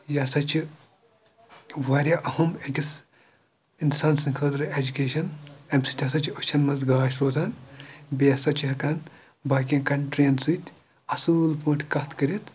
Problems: background sounds at intervals, background conversations at intervals